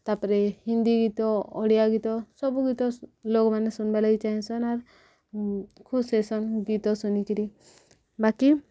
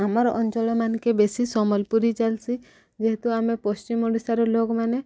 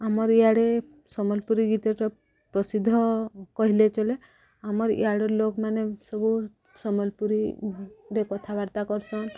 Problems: background sounds at intervals, background conversations at intervals